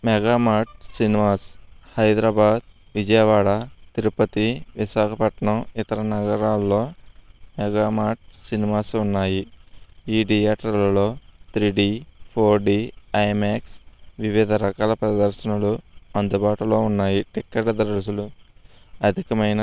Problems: constant background noise